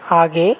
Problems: constant background noise